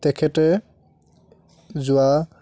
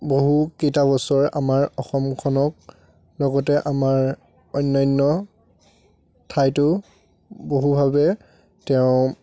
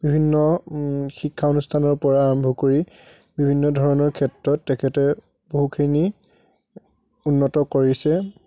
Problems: constant background noise, background conversations at intervals